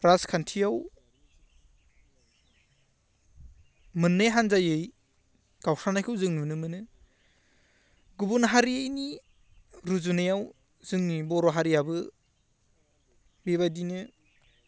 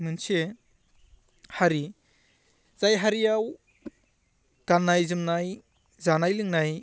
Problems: none marked